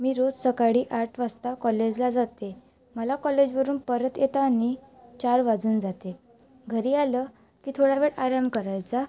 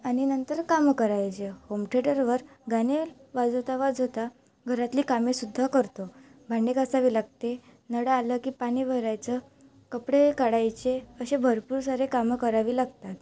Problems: background sounds at intervals